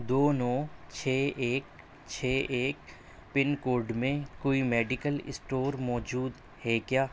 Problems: none marked